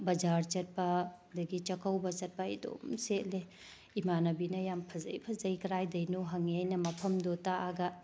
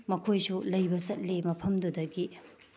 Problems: none marked